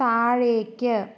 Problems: none marked